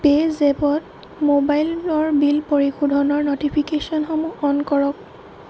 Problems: constant background noise